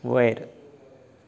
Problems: background sounds at intervals